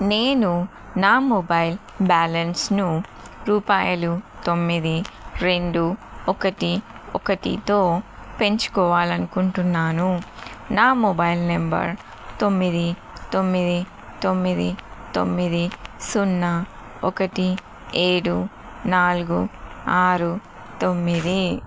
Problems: none marked